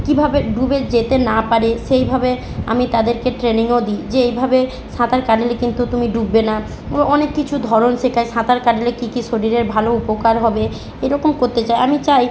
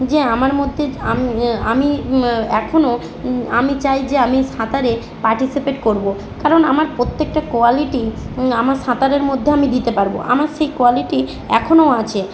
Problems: none marked